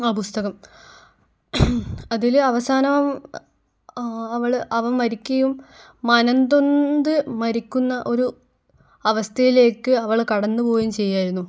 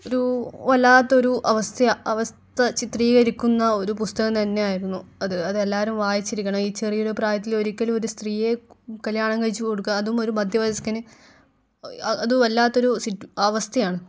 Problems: none marked